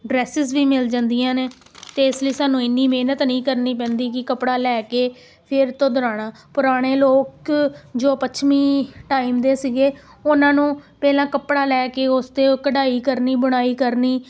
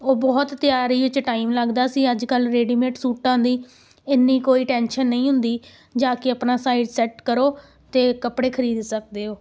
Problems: background sounds at intervals